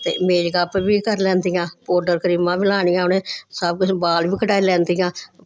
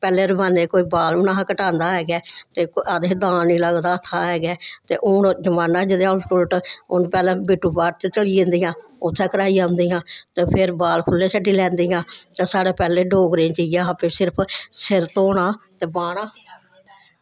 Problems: none marked